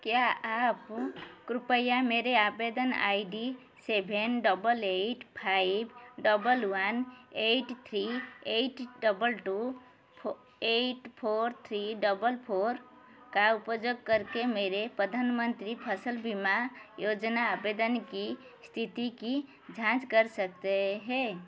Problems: none marked